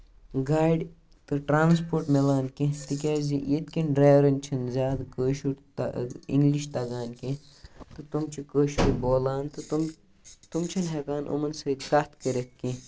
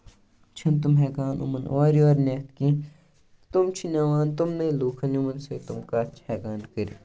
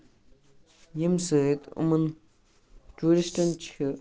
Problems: background sounds at intervals